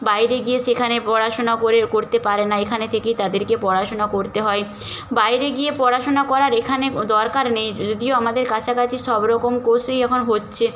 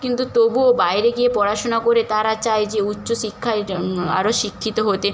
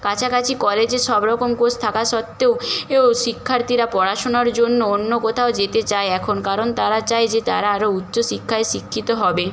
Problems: constant background noise